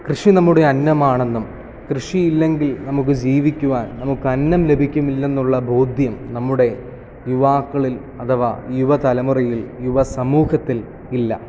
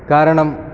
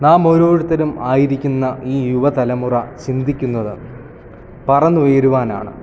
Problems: none marked